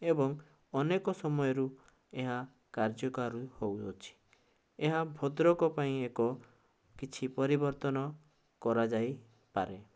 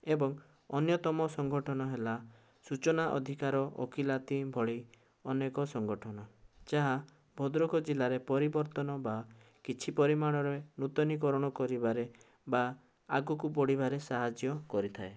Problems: none marked